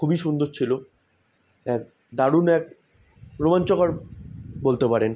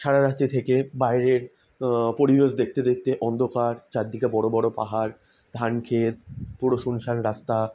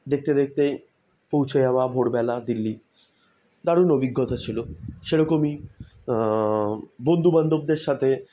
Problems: none marked